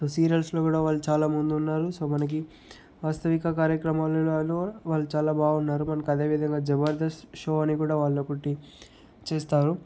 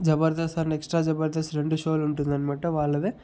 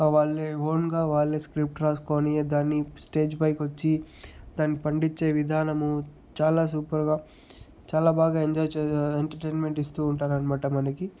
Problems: none marked